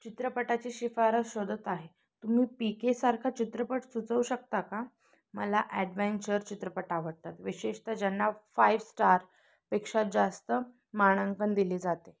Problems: background sounds at intervals